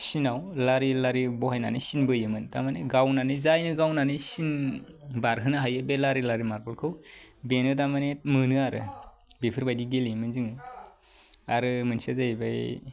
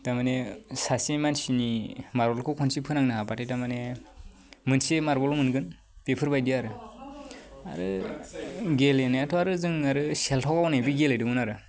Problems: none marked